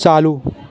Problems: none marked